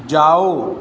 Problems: background sounds at intervals